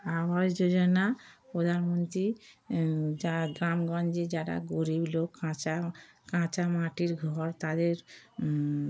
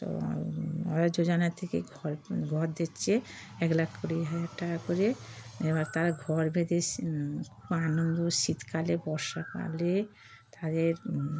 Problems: background sounds at intervals